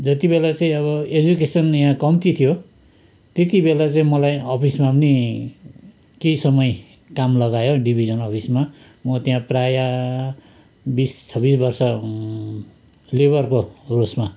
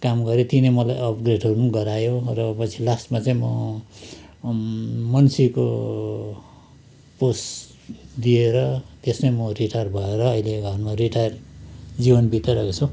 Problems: constant background noise